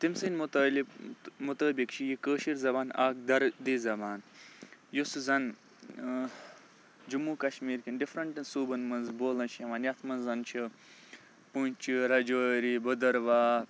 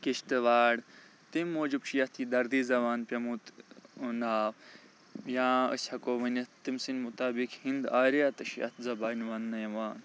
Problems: background sounds at intervals